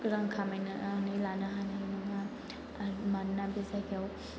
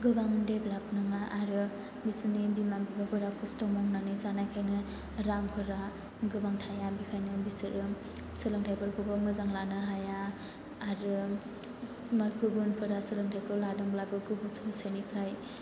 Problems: constant background noise